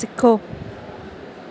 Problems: none marked